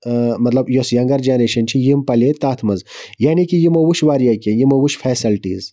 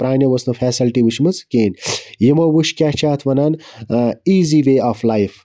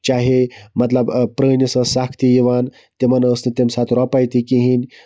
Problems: none marked